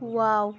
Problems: constant background noise, continuous background conversations